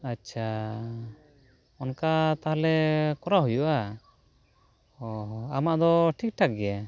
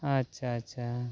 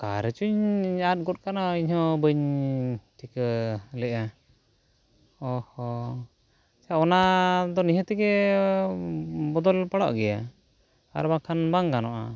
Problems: background conversations at intervals